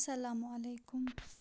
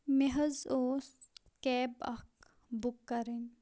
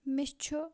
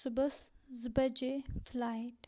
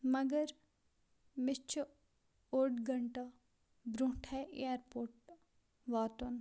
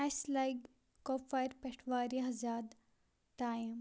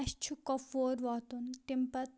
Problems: none marked